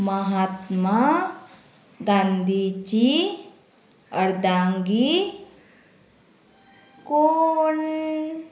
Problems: none marked